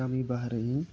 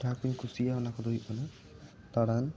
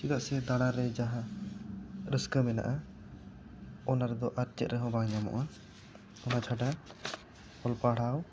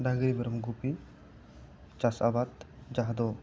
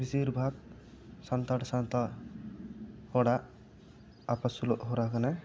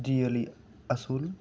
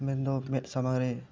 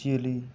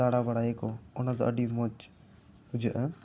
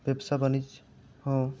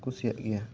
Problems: none marked